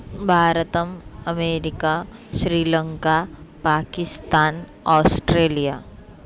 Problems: background sounds at intervals